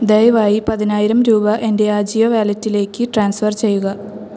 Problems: background sounds at intervals